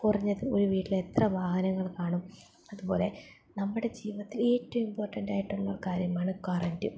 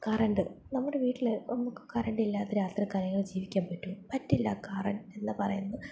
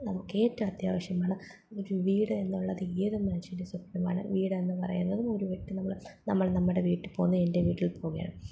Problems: none marked